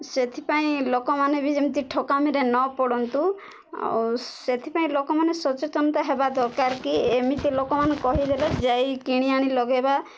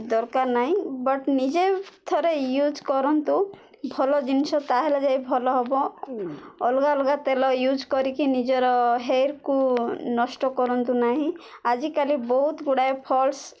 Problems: none marked